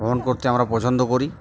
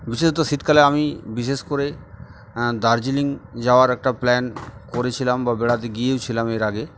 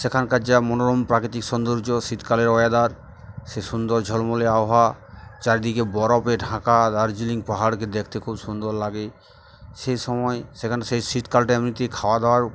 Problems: constant background noise